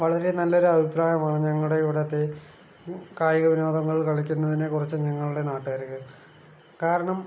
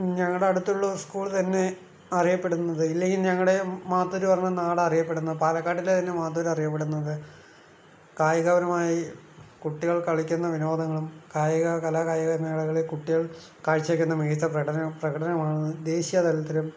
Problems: none marked